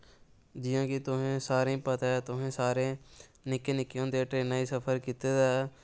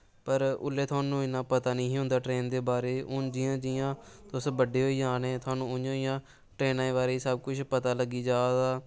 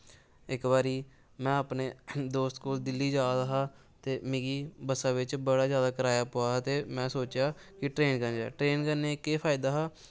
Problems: background sounds at intervals